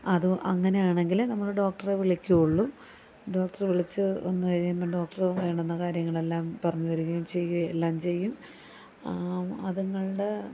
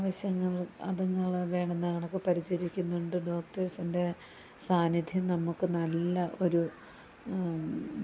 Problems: constant background noise, low volume